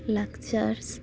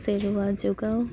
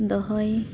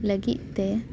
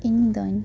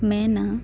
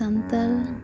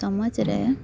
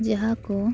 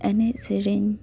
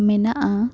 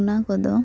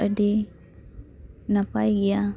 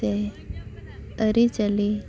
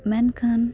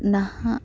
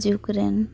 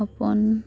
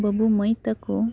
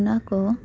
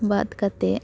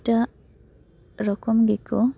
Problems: background sounds at intervals